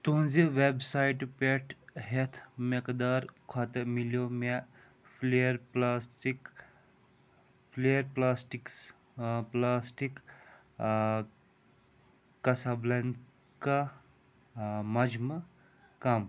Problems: low volume